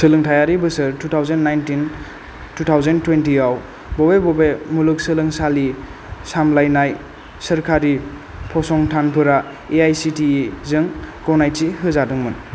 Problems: constant background noise